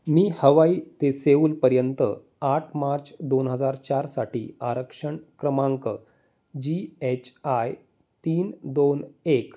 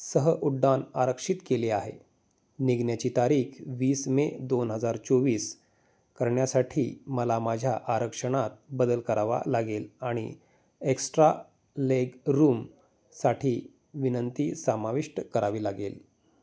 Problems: none marked